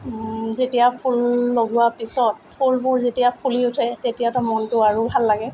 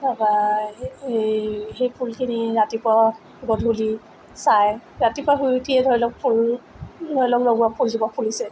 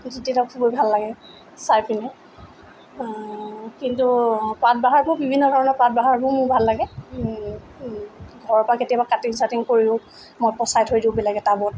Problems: none marked